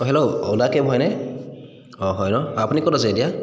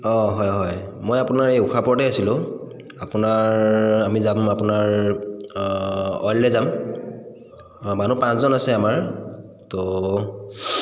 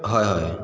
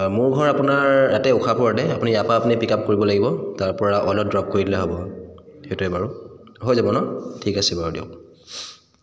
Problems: constant background noise, echo